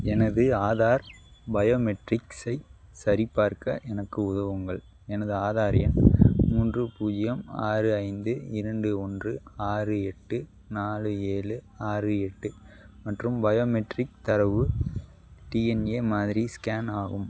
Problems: background sounds at intervals